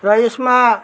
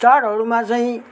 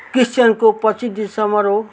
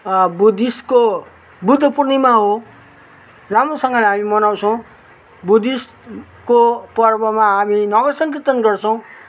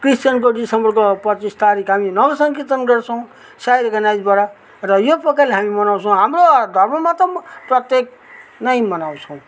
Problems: none marked